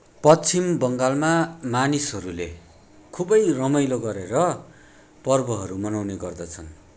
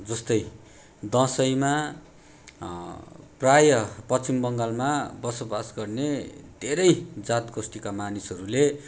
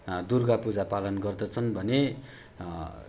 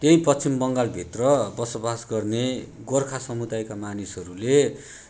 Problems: background sounds at intervals